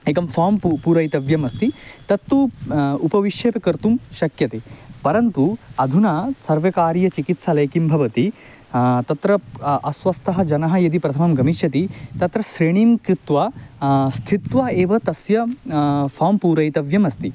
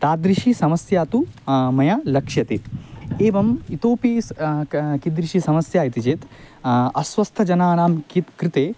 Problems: constant background noise